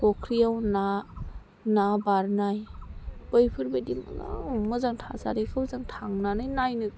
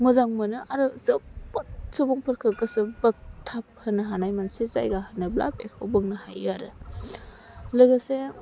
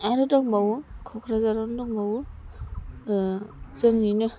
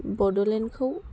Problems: constant background noise